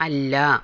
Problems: none marked